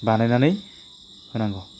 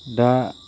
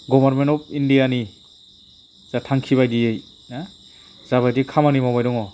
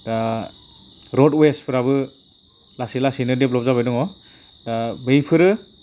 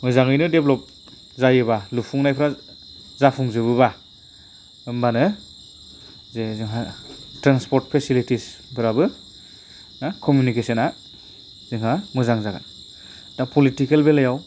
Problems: constant background noise